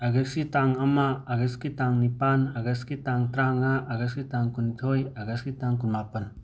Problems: none marked